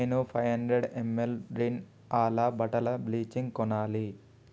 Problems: none marked